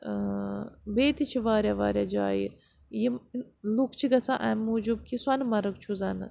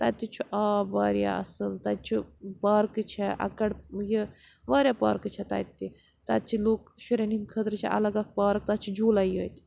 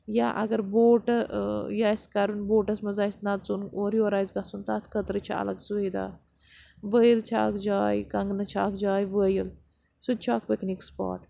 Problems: background sounds at intervals